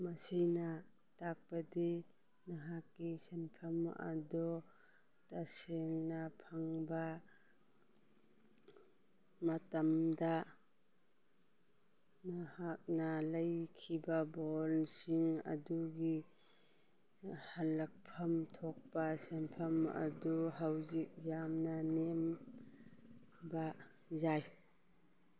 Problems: none marked